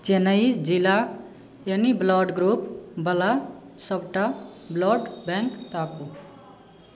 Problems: background sounds at intervals